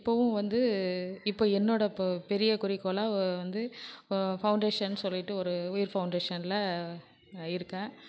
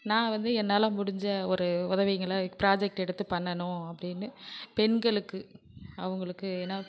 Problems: background sounds at intervals